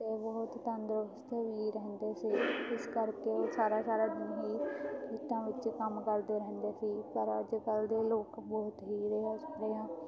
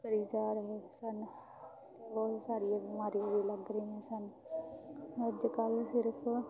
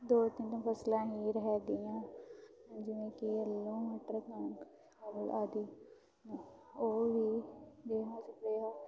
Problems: background sounds at intervals, continuous background conversations